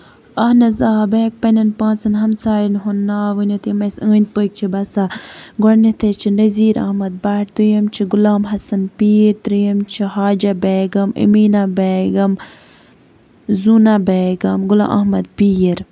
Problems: constant background noise